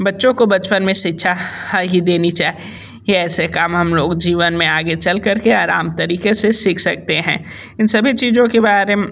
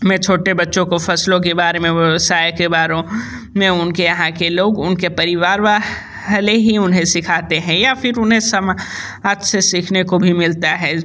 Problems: constant background noise